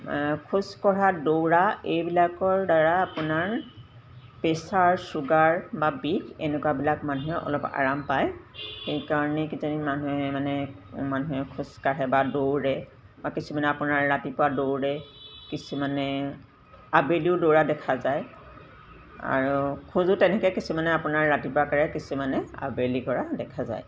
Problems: background sounds at intervals